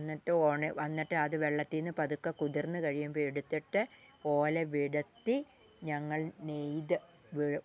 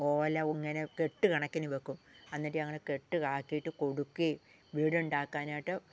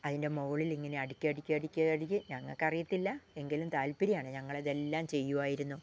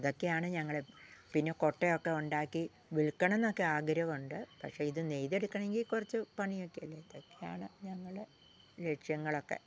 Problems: low volume